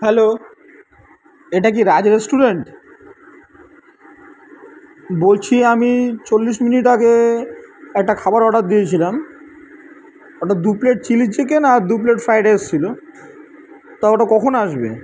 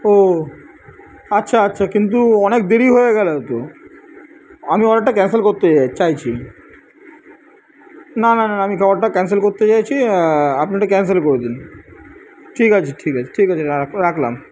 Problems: constant background noise